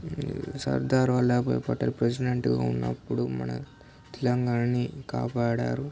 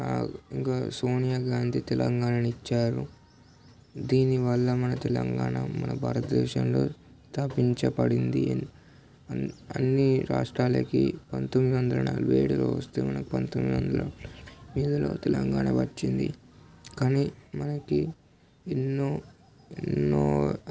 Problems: constant background noise